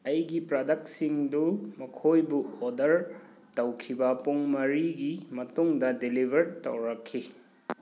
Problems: background sounds at intervals